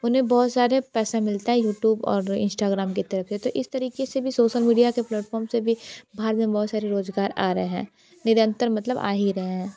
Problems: background conversations at intervals